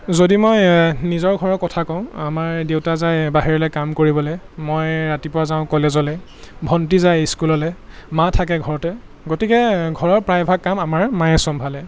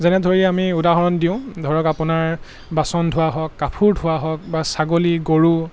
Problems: constant background noise